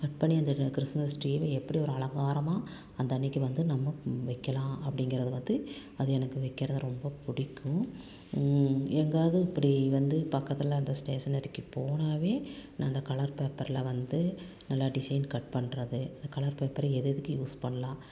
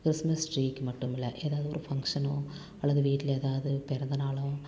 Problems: none marked